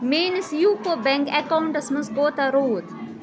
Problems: constant background noise